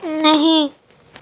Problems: none marked